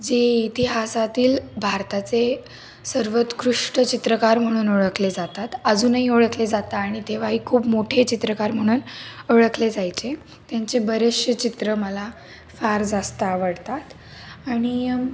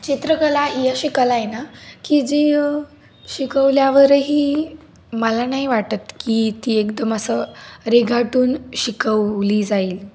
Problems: none marked